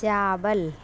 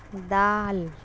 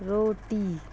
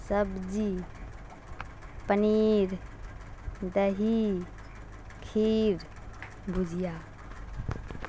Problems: constant background noise